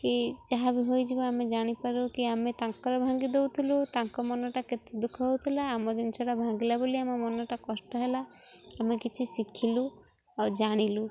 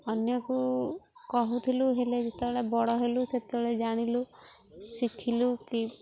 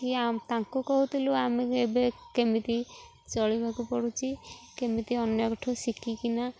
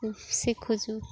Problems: constant background noise